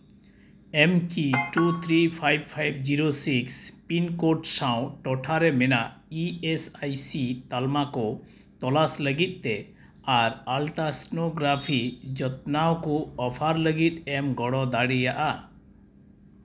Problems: background sounds at intervals